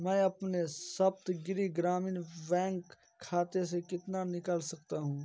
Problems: background sounds at intervals, continuous background conversations